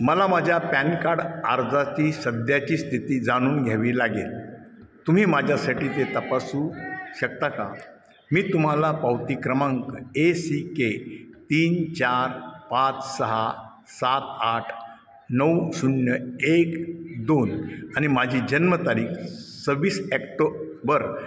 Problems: none marked